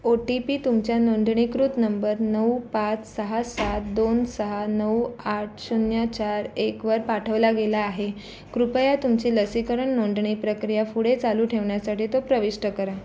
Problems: constant background noise, background conversations at intervals